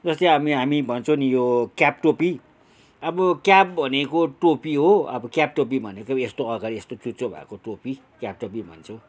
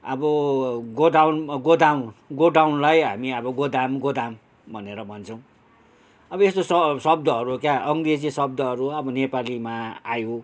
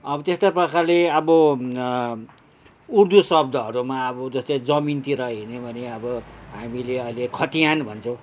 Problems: none marked